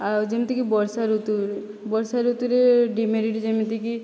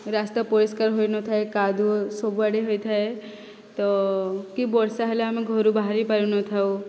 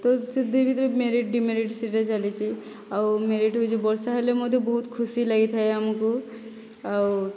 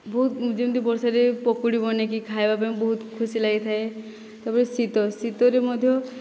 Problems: none marked